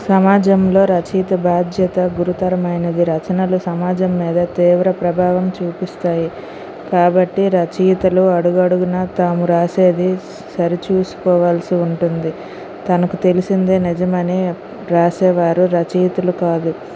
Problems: constant background noise